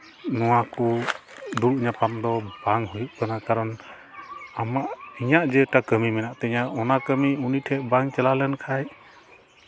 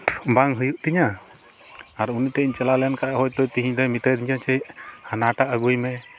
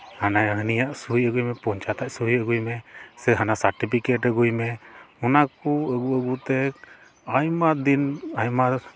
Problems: constant background noise